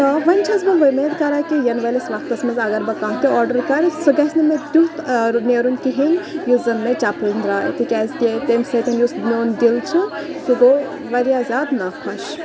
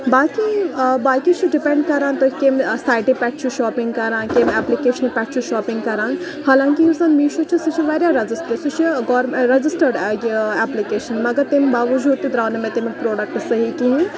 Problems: background sounds at intervals, continuous background conversations